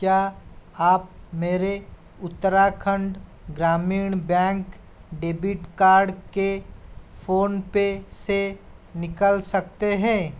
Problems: constant background noise